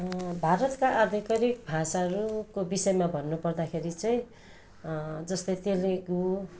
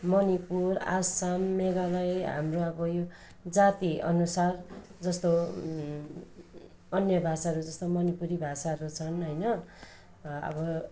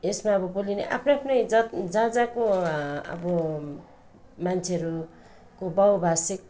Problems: none marked